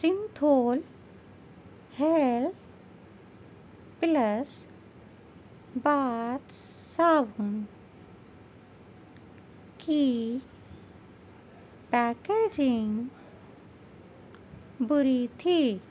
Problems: none marked